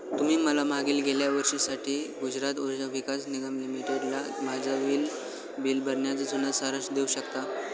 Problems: constant background noise, continuous background conversations